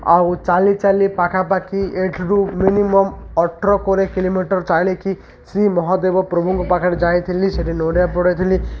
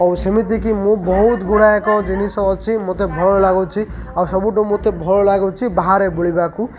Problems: constant background noise, continuous background conversations